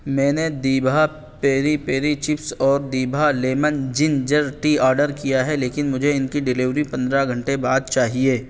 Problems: none marked